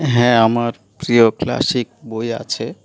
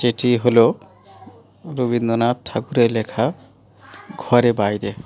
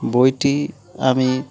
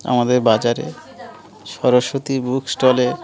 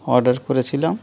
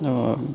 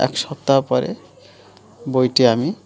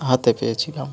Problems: continuous background conversations